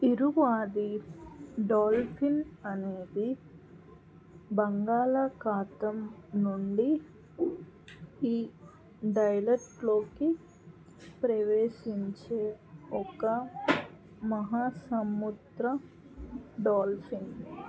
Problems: none marked